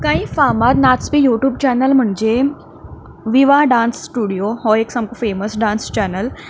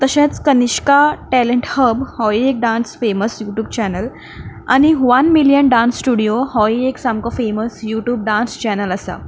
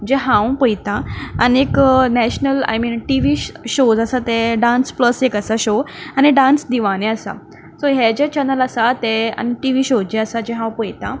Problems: none marked